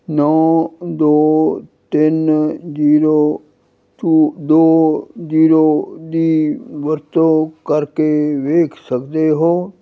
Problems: none marked